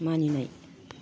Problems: low volume